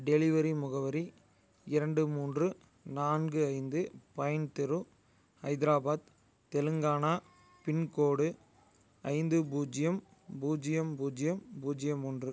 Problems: none marked